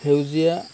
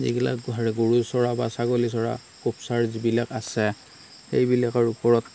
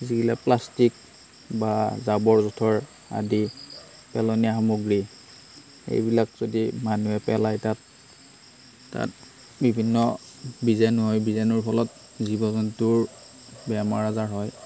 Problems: constant background noise